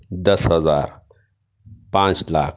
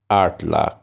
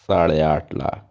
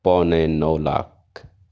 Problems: none marked